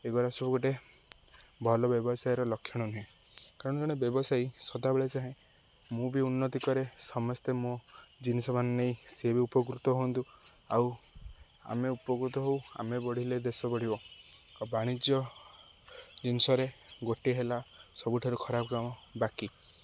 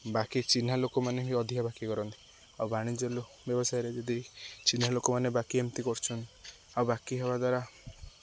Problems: none marked